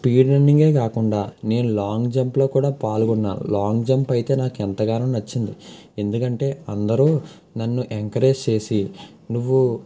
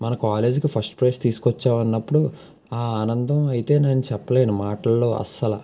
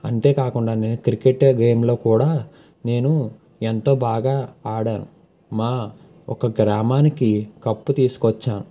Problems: none marked